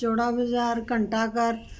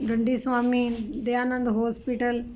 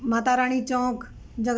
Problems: constant background noise